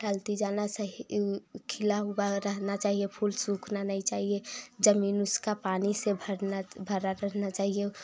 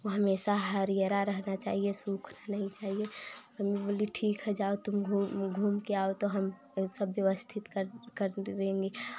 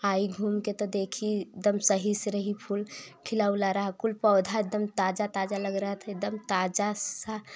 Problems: background sounds at intervals